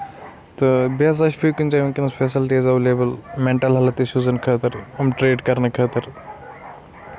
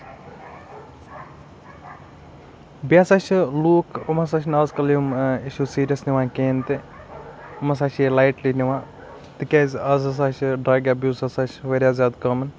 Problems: constant background noise